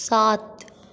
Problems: constant background noise, echo